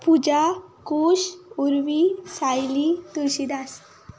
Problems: none marked